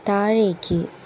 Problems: constant background noise